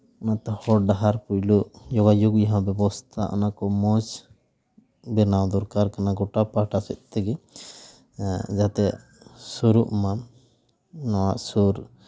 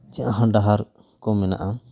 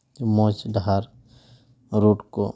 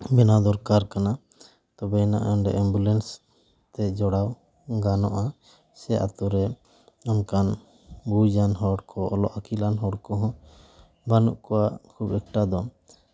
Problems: none marked